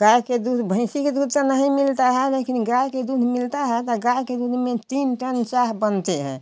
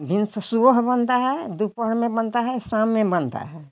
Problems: none marked